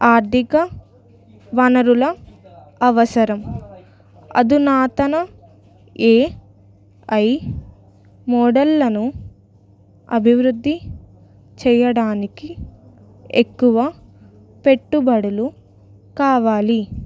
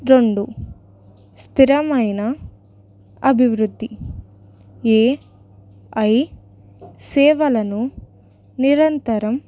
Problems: background conversations at intervals